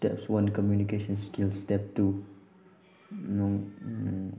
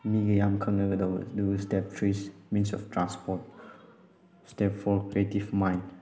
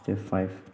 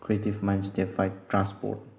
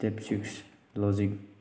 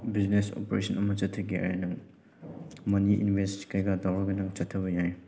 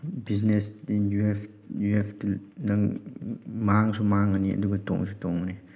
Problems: background sounds at intervals